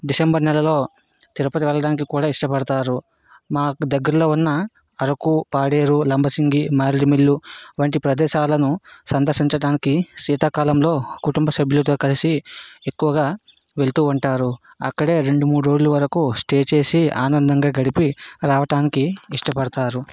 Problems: background sounds at intervals